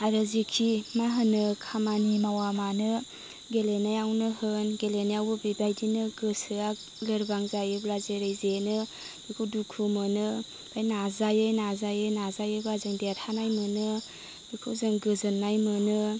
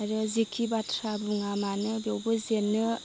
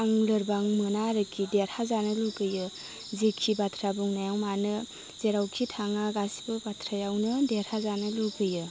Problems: none marked